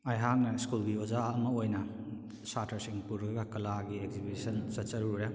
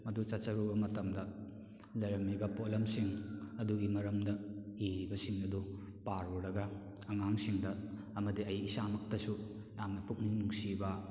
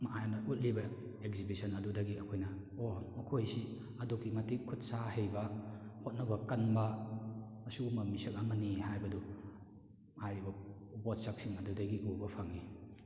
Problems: none marked